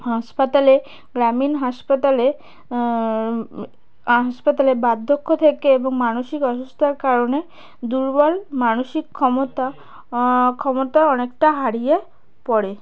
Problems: background sounds at intervals, background conversations at intervals